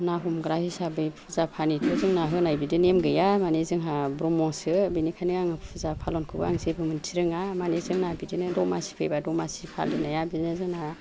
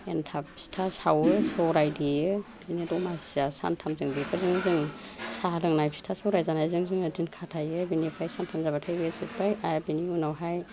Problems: none marked